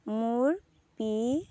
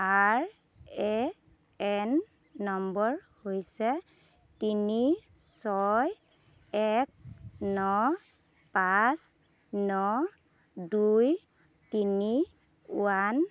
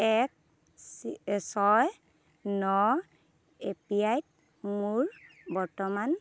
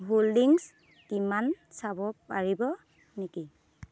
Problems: constant background noise